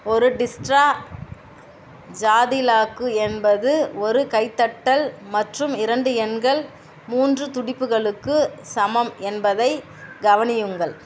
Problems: constant background noise